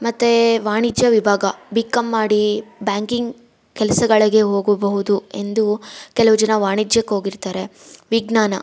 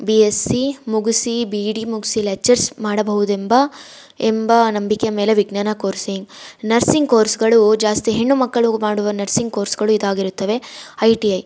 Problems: background sounds at intervals